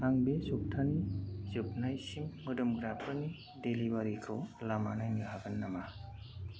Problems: none marked